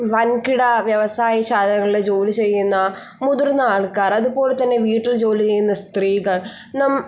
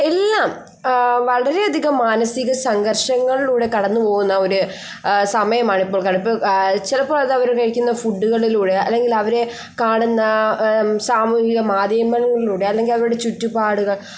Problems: none marked